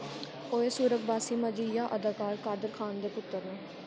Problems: constant background noise, low volume